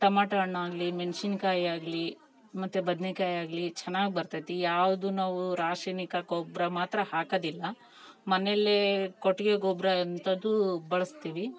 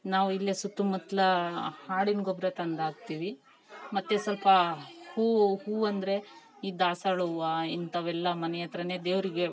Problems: background conversations at intervals